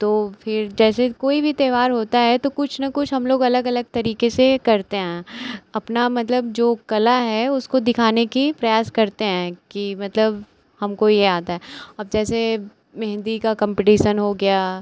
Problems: constant background noise